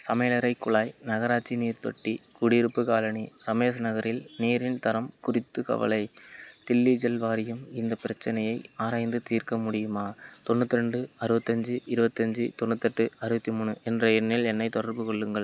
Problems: none marked